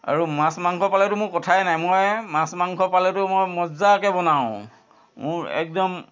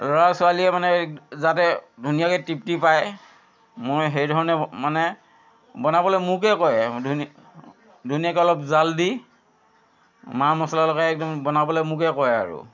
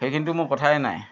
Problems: constant background noise